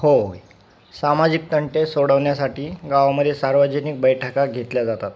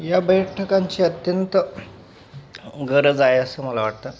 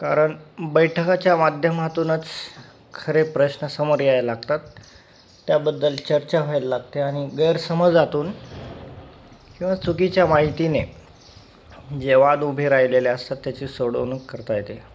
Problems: none marked